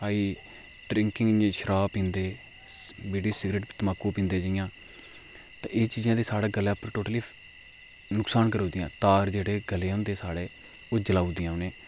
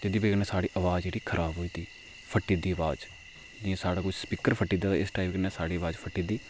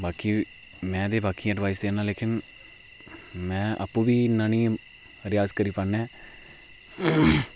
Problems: low volume